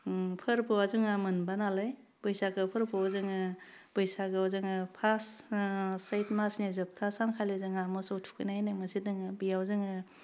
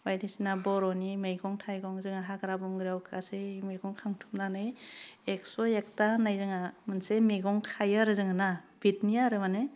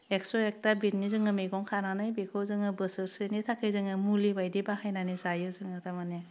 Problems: background sounds at intervals, low volume